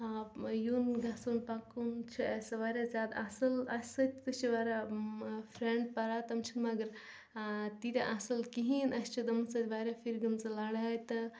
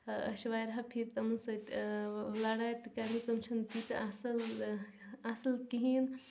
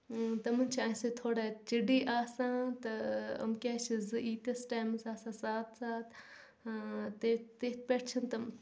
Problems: background sounds at intervals, background conversations at intervals, low volume